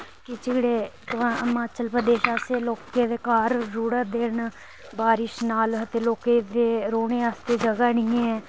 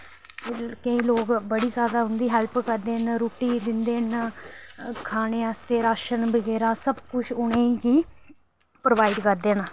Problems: constant background noise